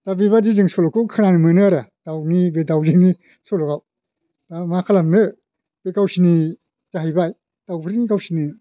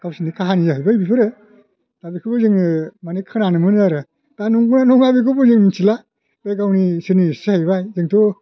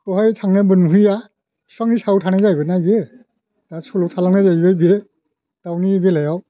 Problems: none marked